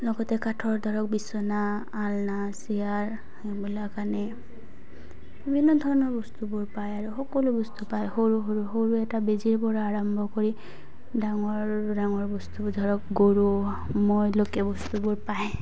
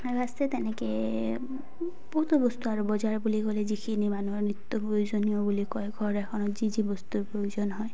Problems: background sounds at intervals, background conversations at intervals